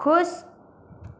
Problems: constant background noise